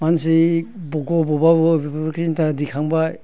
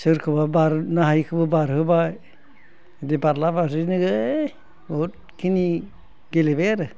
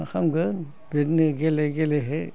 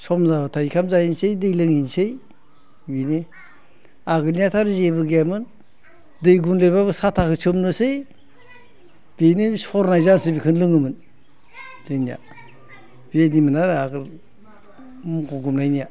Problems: constant background noise